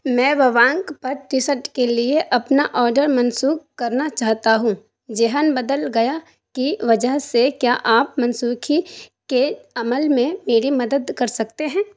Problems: none marked